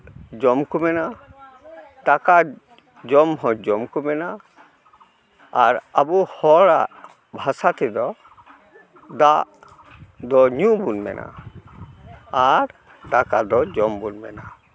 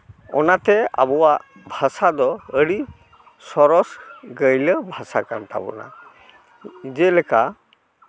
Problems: none marked